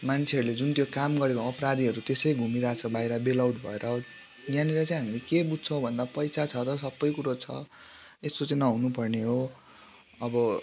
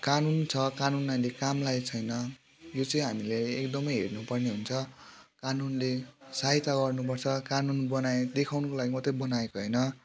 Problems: constant background noise